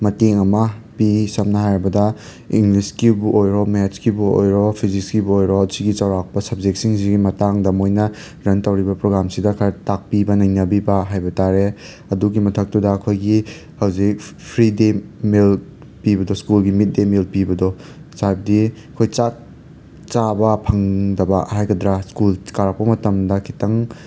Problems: background sounds at intervals